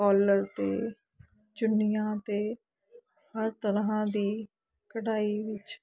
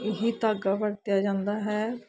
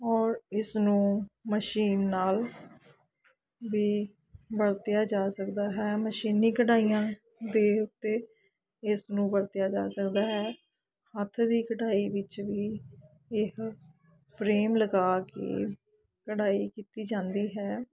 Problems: background conversations at intervals